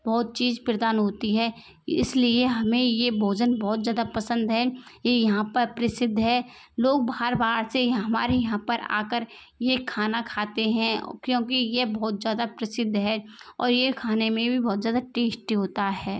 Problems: constant background noise